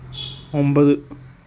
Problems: background sounds at intervals